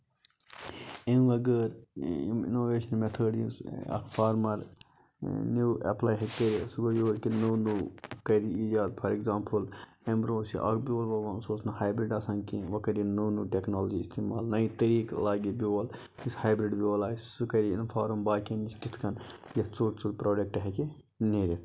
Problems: low volume